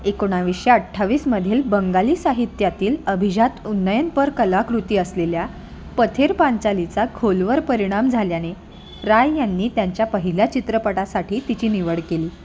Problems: constant background noise, continuous background conversations